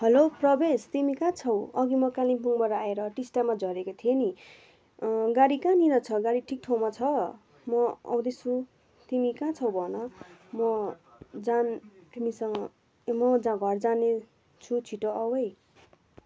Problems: none marked